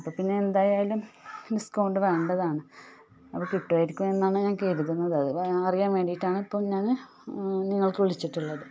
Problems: background sounds at intervals